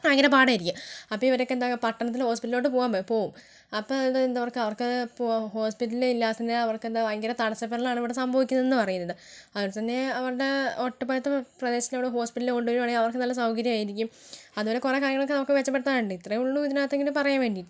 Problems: low volume